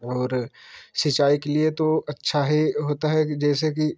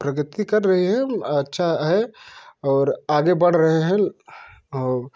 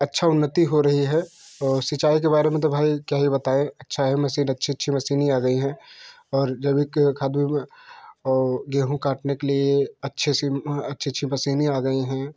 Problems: none marked